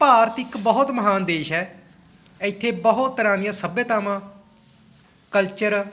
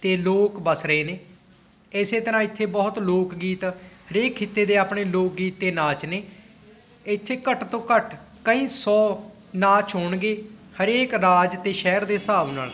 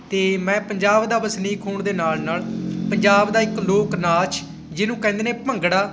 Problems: constant background noise